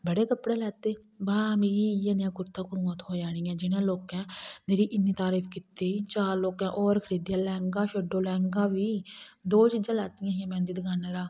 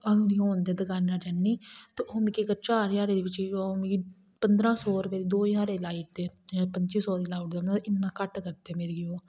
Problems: none marked